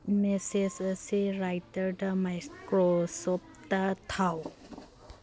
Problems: background conversations at intervals